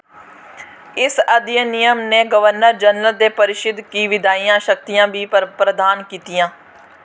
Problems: constant background noise